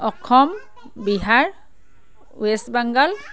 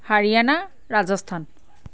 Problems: none marked